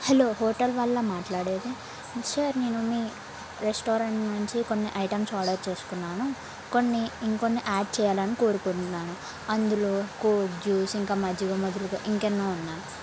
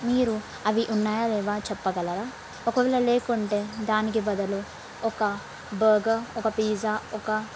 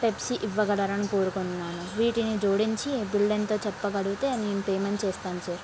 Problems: constant background noise